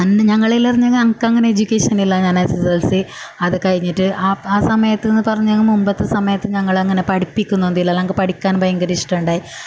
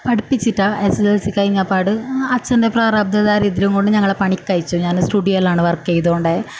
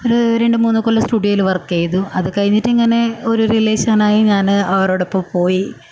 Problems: none marked